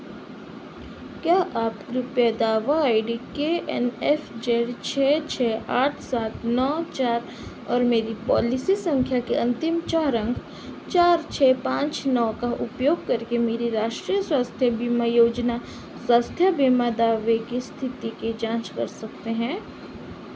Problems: constant background noise